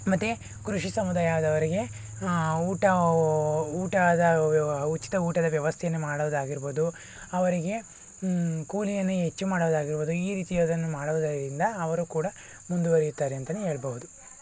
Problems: none marked